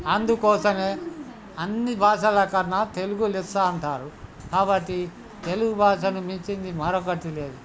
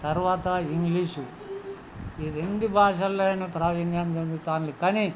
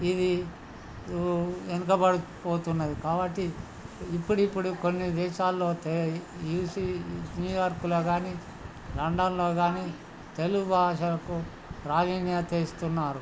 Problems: background conversations at intervals